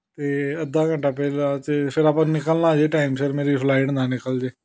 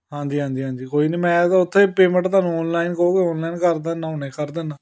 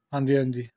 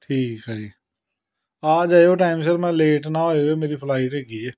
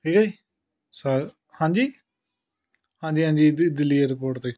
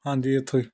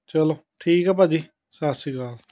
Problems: background sounds at intervals, background conversations at intervals